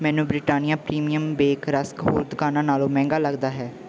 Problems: background sounds at intervals